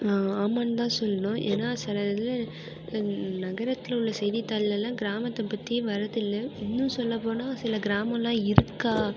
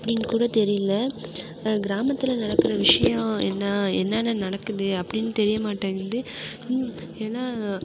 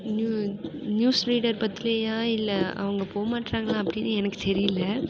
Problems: background sounds at intervals